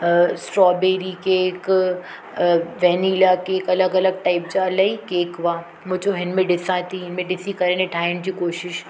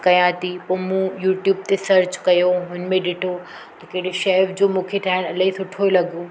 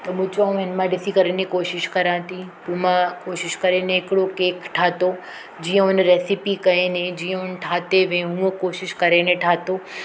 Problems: constant background noise